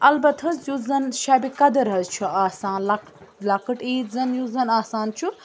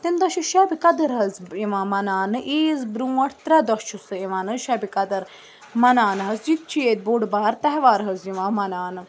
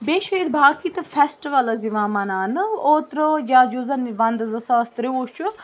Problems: constant background noise